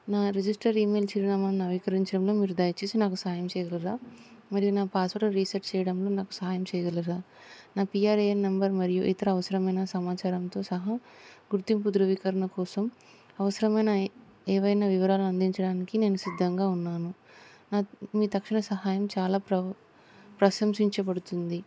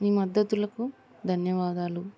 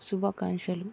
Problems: constant background noise